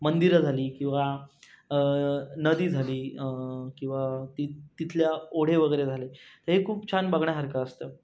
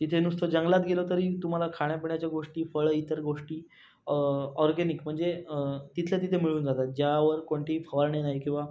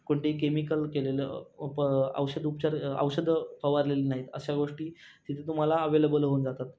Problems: constant background noise